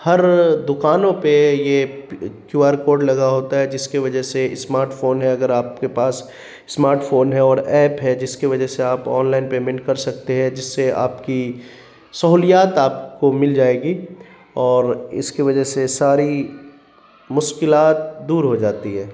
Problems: constant background noise